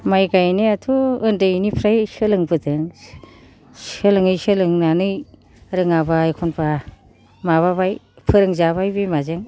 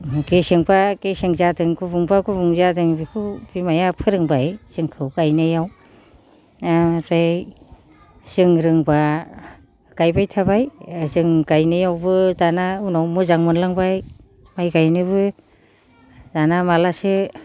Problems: low volume